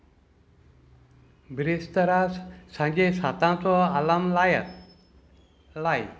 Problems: none marked